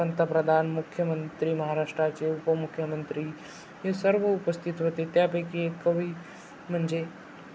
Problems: constant background noise, continuous background conversations